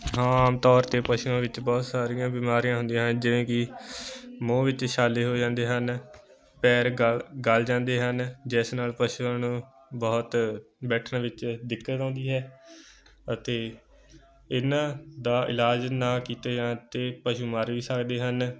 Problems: continuous background conversations